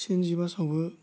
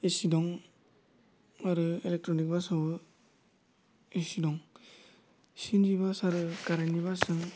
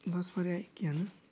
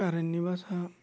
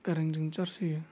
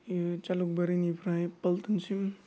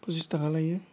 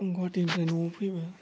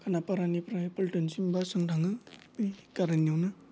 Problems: low volume